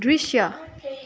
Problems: continuous background conversations